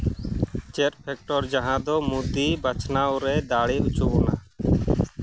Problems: background sounds at intervals